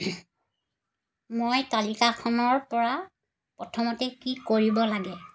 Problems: constant background noise